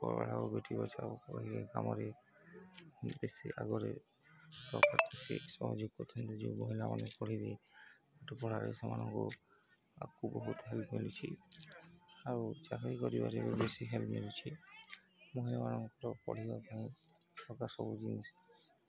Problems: constant background noise, continuous background conversations